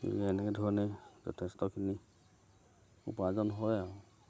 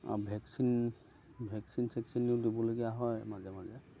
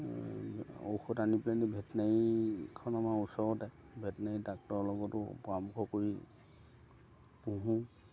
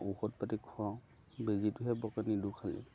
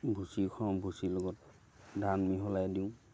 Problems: none marked